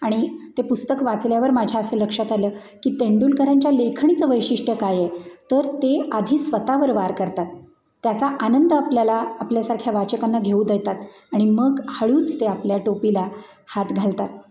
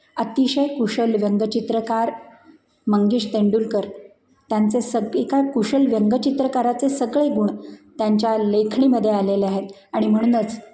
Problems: background sounds at intervals